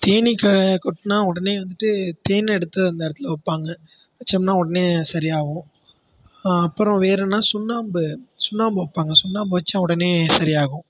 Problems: background sounds at intervals